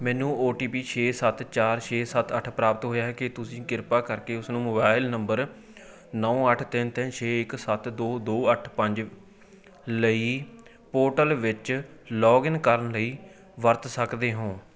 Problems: continuous background conversations